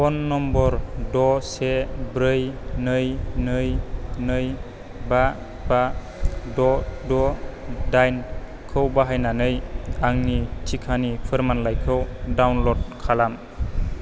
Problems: none marked